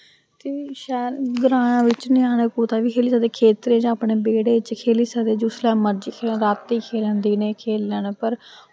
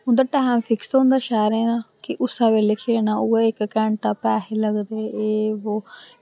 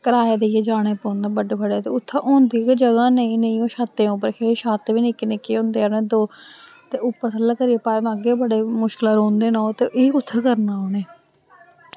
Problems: constant background noise